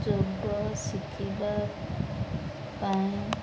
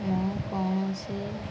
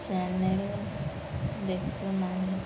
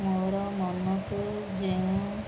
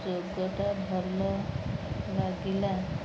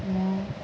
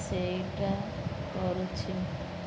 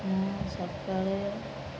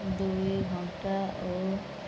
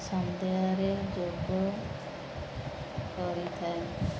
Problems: none marked